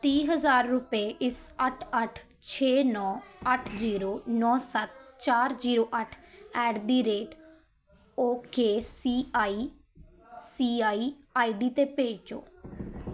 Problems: continuous background conversations